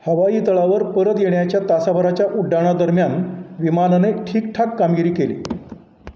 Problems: none marked